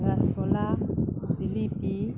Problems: constant background noise